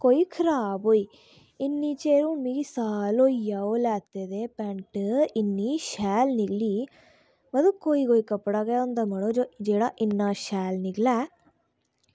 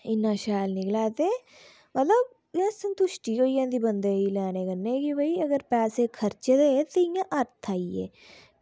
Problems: low volume